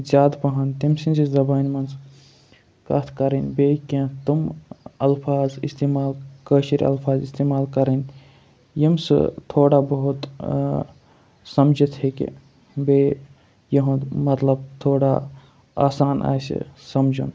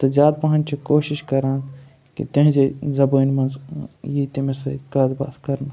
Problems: background sounds at intervals